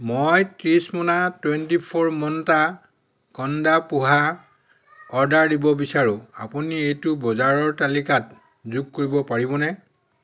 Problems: background conversations at intervals